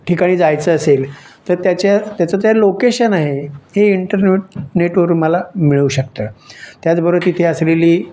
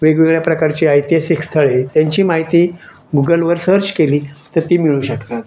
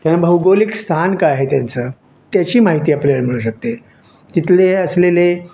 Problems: none marked